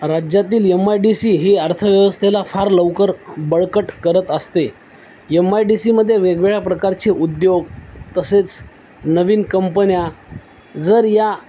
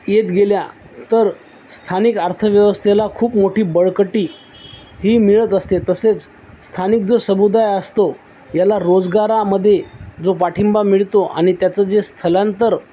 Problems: none marked